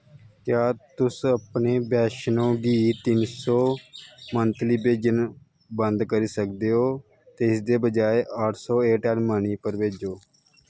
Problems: constant background noise